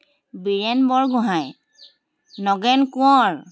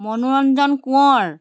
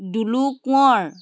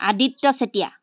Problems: constant background noise